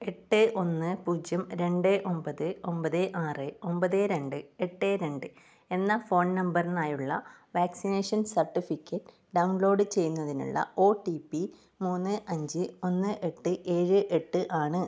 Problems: none marked